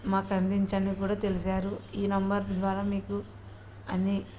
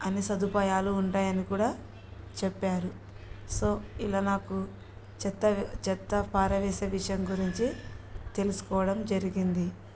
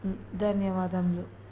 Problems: background sounds at intervals